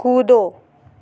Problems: constant background noise, echo